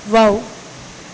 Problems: constant background noise